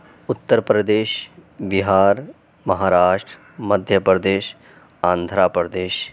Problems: none marked